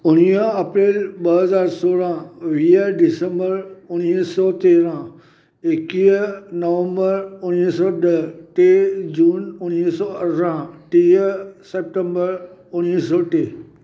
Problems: none marked